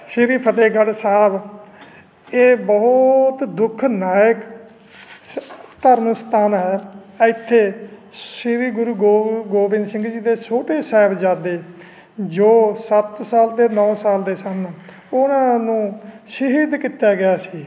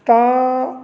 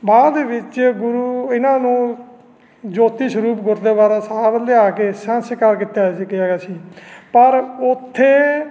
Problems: none marked